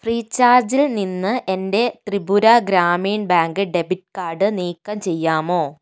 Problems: none marked